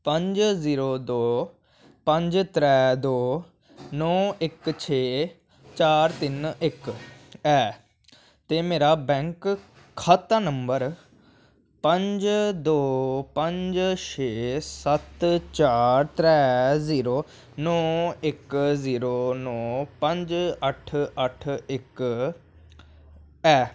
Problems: none marked